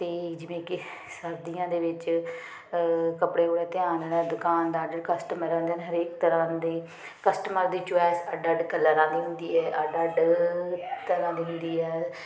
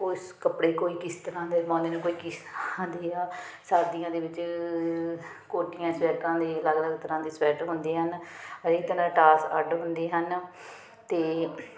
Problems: none marked